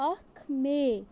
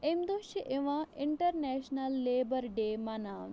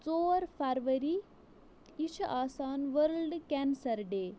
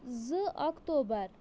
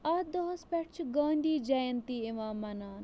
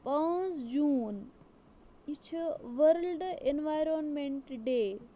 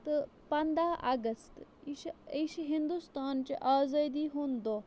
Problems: background sounds at intervals